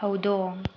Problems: constant background noise